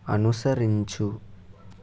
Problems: none marked